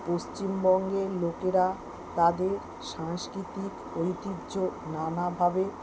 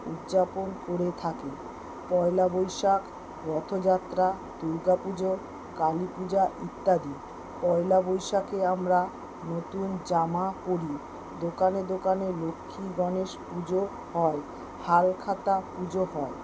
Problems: constant background noise